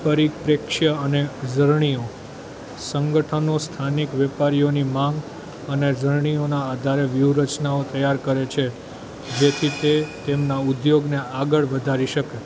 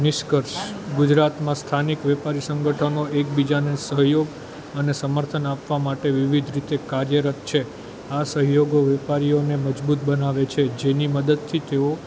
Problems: constant background noise